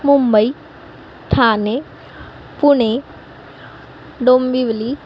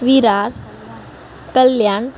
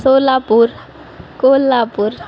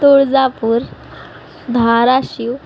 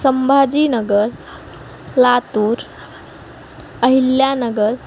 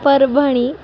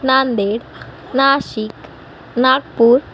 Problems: none marked